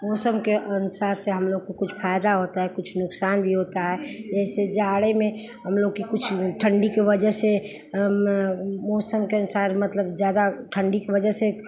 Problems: background sounds at intervals, background conversations at intervals